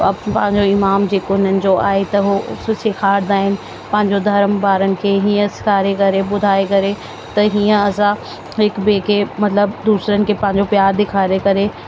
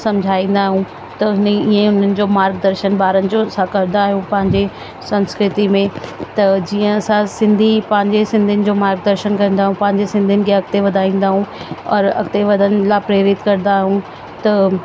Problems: constant background noise, echo